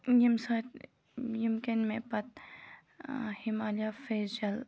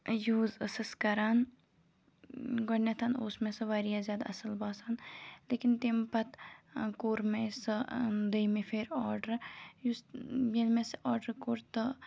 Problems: background sounds at intervals